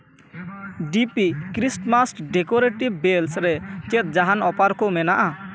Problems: background conversations at intervals